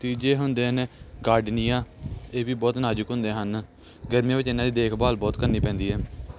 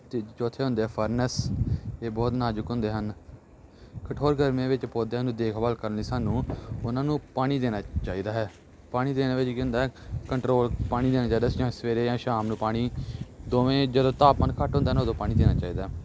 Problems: none marked